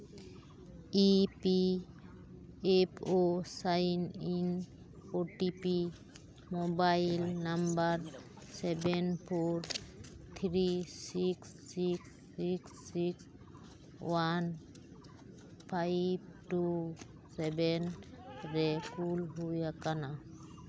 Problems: constant background noise, background conversations at intervals